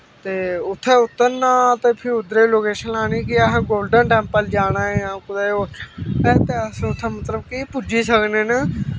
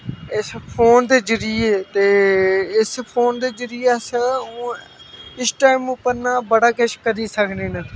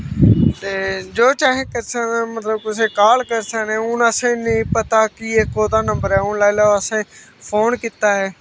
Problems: constant background noise